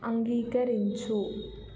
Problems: low volume